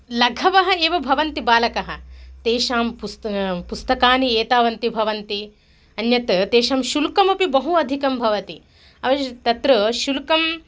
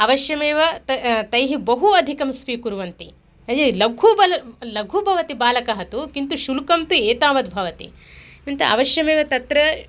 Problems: none marked